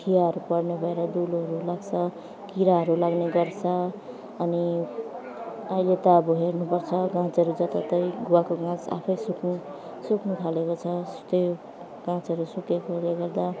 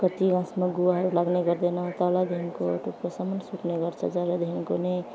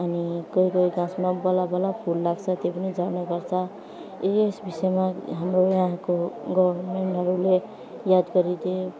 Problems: none marked